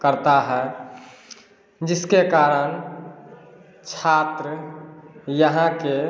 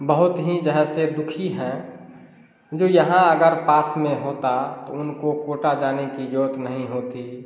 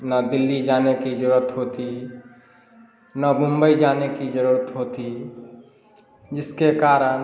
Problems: none marked